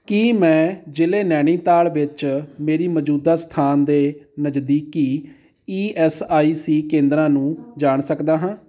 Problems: background conversations at intervals